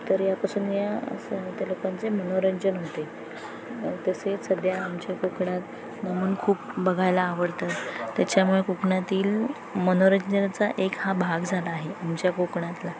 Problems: constant background noise, background conversations at intervals